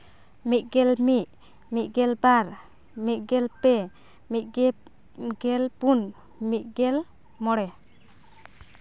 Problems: none marked